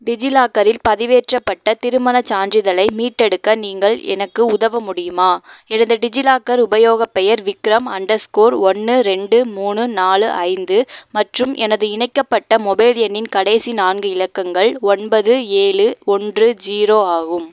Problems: background sounds at intervals